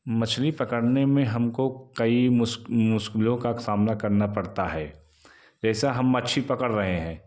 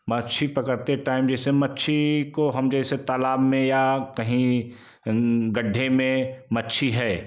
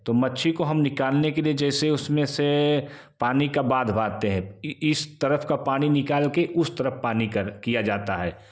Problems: constant background noise, background conversations at intervals